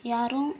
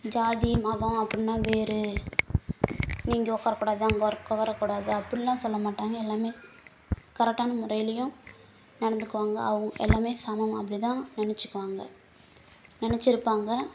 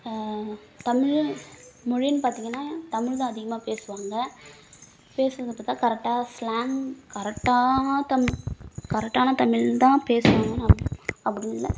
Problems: none marked